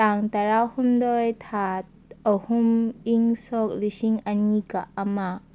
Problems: none marked